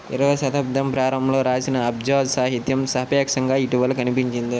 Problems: constant background noise